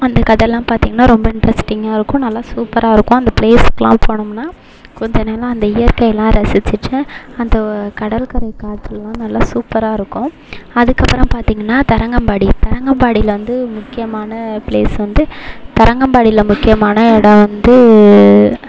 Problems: constant background noise